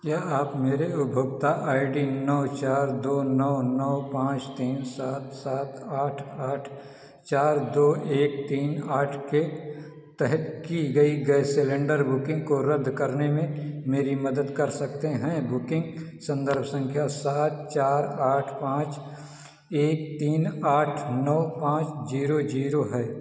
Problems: echo